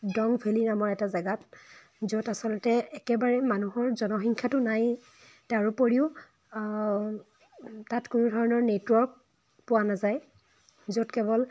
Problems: background sounds at intervals